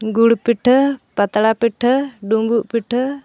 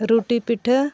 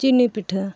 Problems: constant background noise, background conversations at intervals